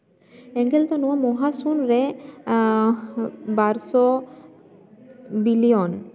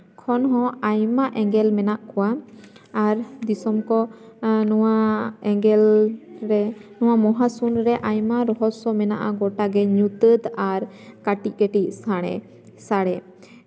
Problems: constant background noise, continuous background conversations, echo